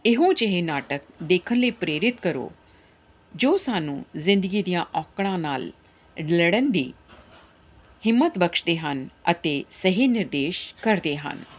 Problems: background sounds at intervals